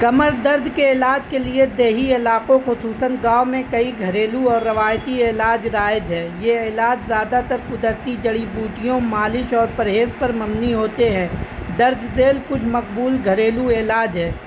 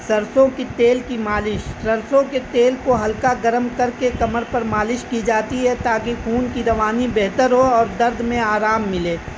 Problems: constant background noise